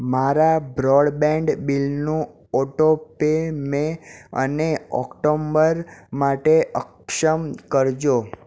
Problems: none marked